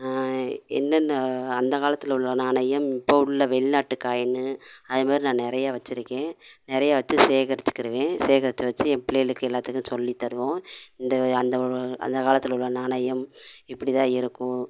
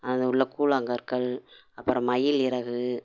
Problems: none marked